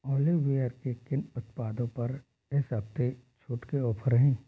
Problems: none marked